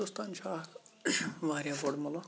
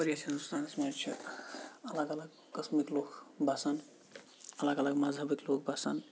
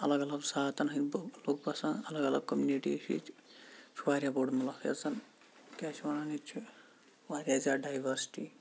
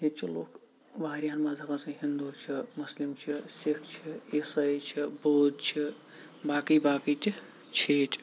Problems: background sounds at intervals, low volume